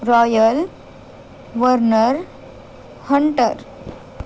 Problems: none marked